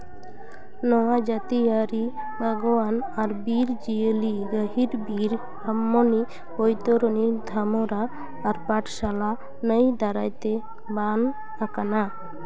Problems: constant background noise, continuous background conversations